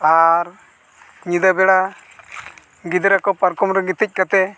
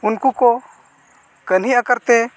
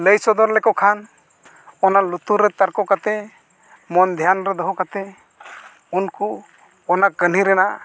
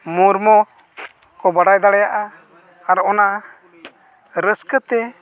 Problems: none marked